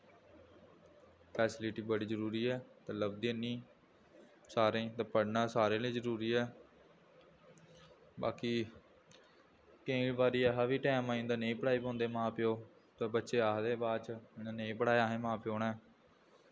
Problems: low volume